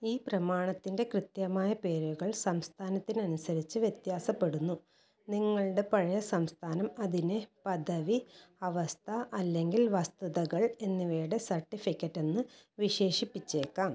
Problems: low volume